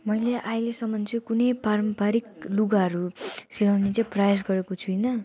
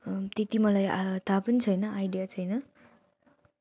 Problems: none marked